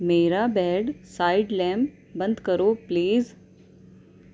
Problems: none marked